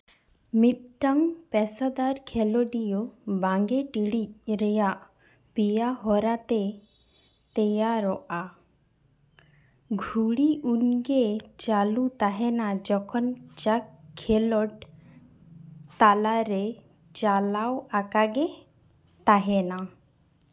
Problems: constant background noise